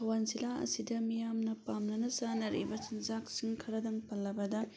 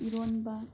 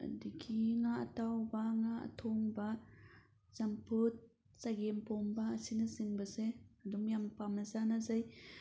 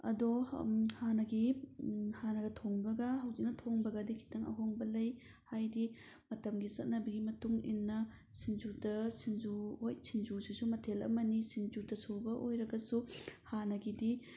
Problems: background sounds at intervals